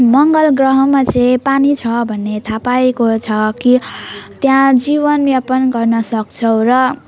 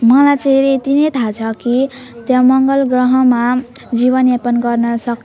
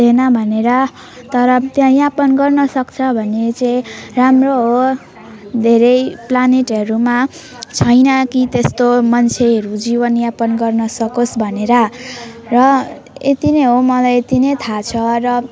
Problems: constant background noise